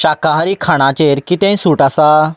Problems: none marked